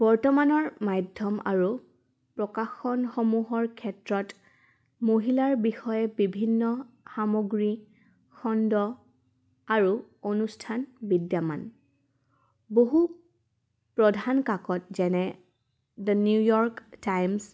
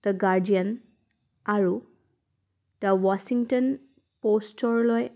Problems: none marked